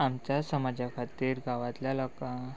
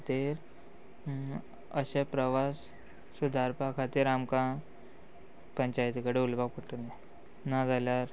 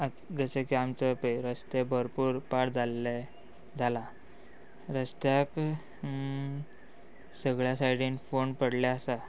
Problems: background sounds at intervals